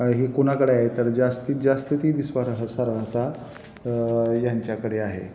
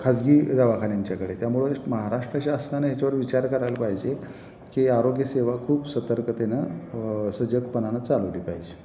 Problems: none marked